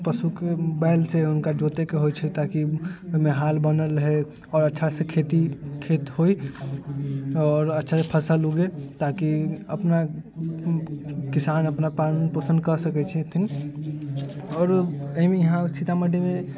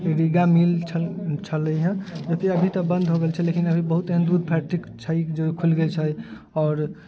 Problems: none marked